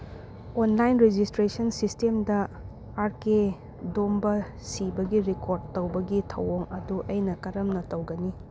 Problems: constant background noise